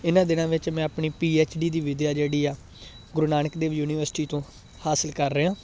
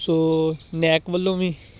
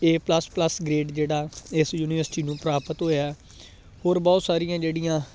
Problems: constant background noise